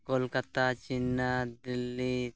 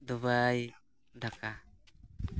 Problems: none marked